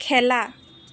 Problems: constant background noise